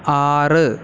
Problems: constant background noise